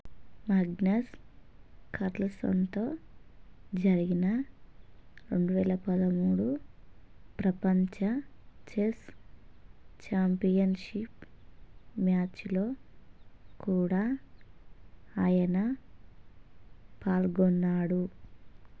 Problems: constant background noise, low volume